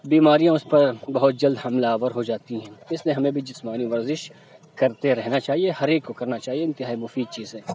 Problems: background sounds at intervals